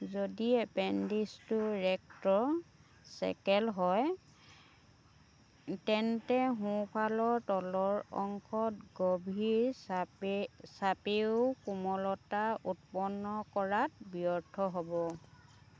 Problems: background sounds at intervals, background conversations at intervals